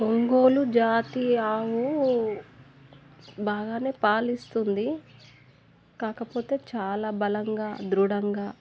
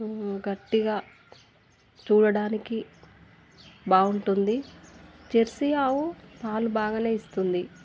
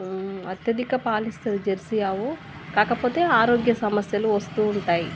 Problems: none marked